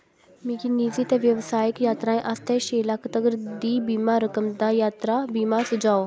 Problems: background sounds at intervals, background conversations at intervals